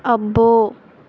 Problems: none marked